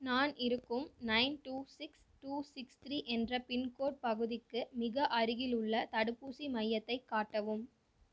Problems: none marked